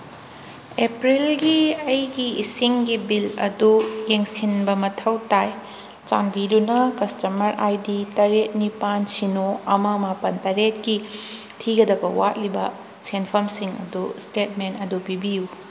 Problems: background sounds at intervals